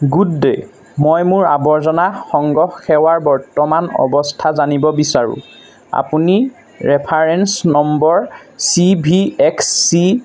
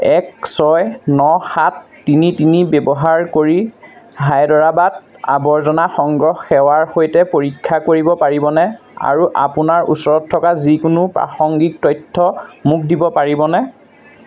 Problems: constant background noise